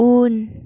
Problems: none marked